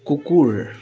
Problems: continuous background conversations